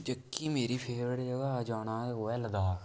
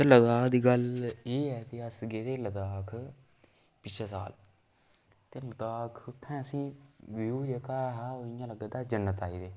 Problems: background sounds at intervals, echo